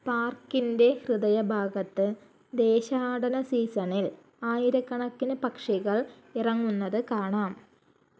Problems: low volume